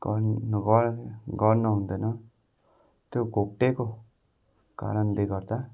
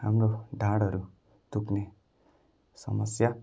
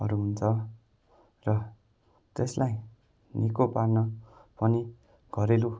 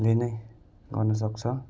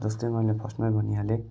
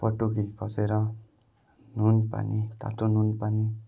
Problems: none marked